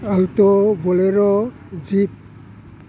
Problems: low volume